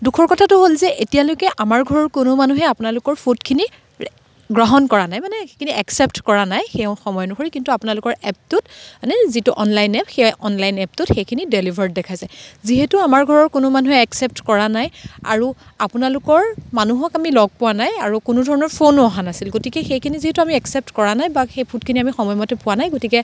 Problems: constant background noise